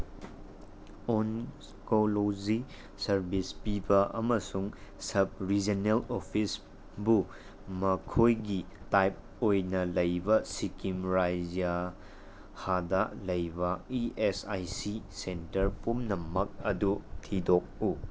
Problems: constant background noise